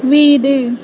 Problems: constant background noise